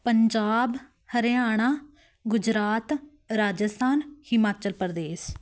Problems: none marked